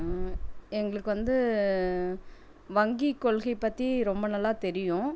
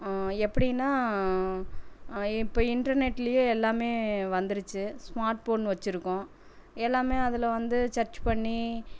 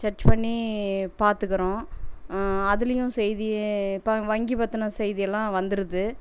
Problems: none marked